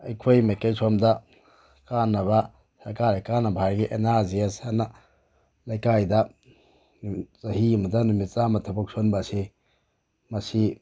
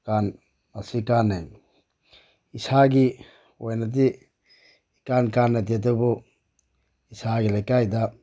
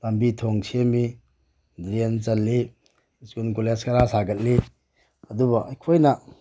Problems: background sounds at intervals